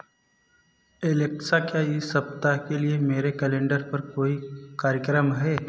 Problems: none marked